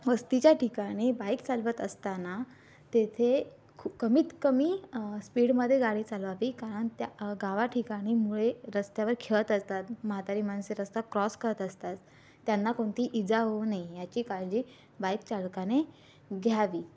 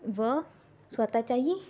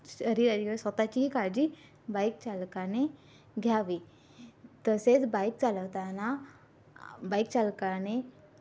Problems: constant background noise